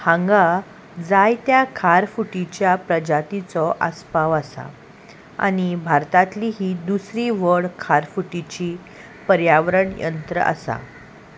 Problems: constant background noise